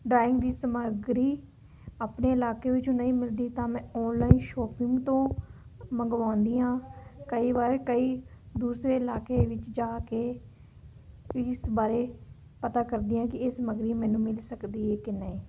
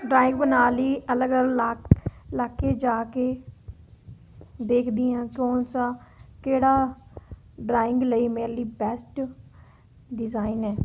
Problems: background conversations at intervals